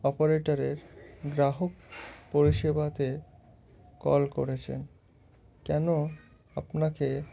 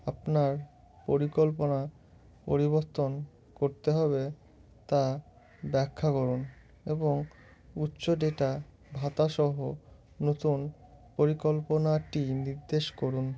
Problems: none marked